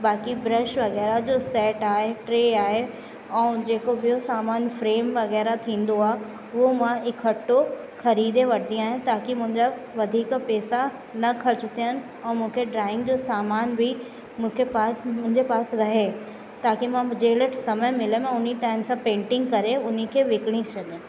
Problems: constant background noise, echo